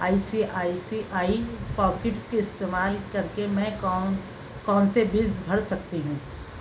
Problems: constant background noise